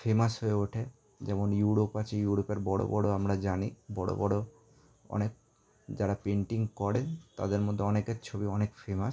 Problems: background conversations at intervals